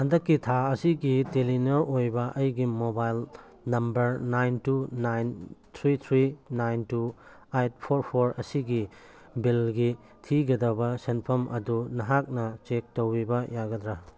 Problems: background sounds at intervals